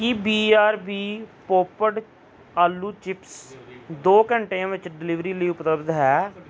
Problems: background conversations at intervals